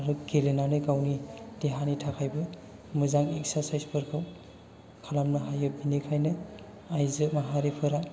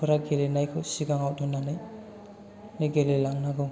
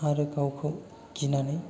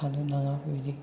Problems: low volume